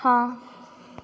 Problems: none marked